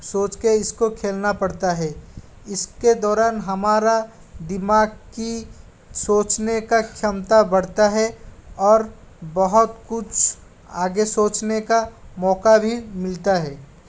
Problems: constant background noise